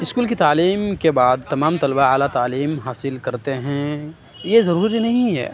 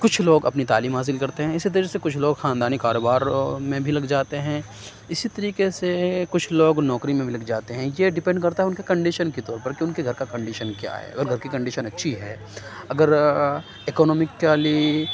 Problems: none marked